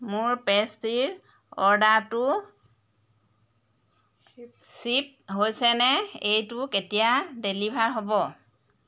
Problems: constant background noise, background conversations at intervals